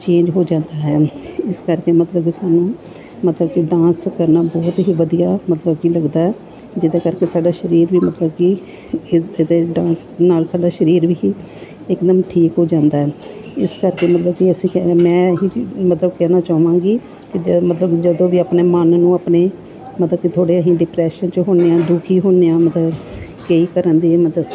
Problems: background sounds at intervals, background conversations at intervals